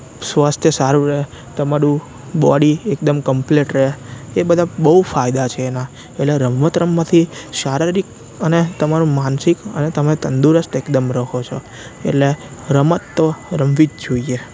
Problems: constant background noise